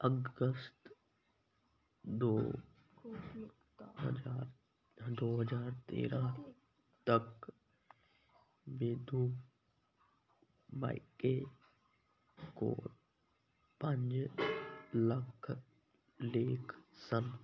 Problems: background conversations at intervals